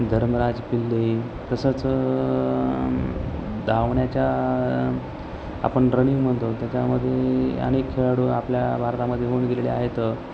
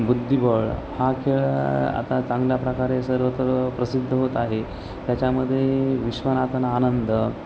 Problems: constant background noise, background conversations at intervals